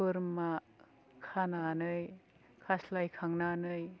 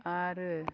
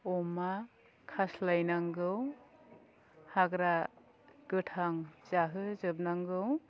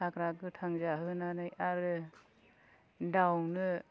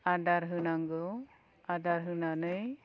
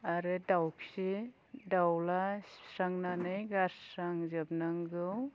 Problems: low volume